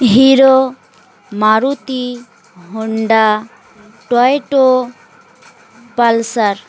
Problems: constant background noise, continuous background conversations